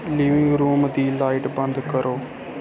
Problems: constant background noise